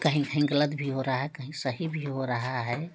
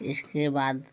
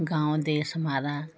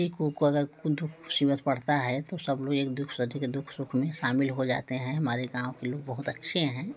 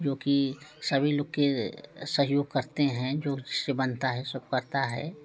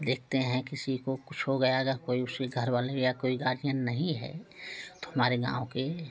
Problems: none marked